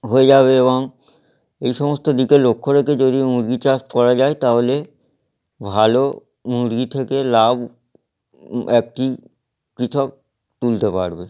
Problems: background sounds at intervals